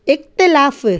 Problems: none marked